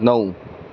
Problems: background sounds at intervals